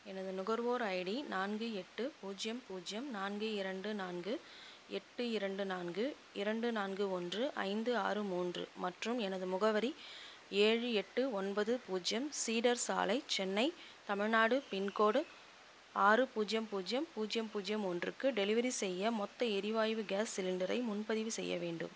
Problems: constant background noise, low volume